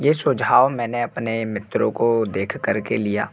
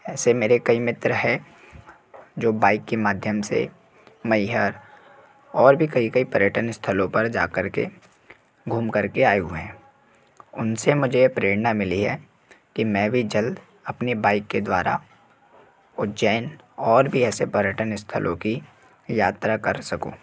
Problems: background sounds at intervals